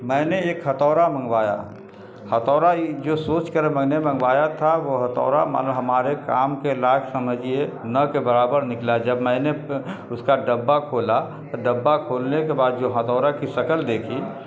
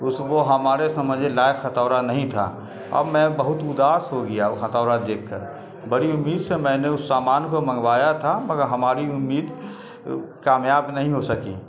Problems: constant background noise